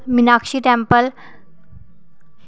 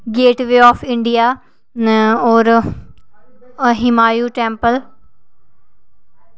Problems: none marked